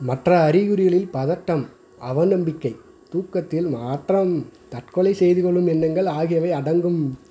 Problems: constant background noise